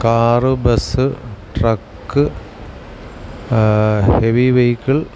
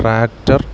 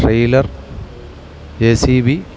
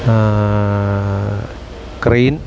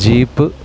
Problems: constant background noise